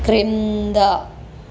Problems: none marked